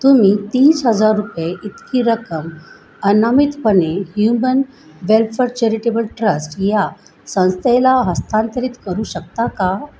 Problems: constant background noise, background conversations at intervals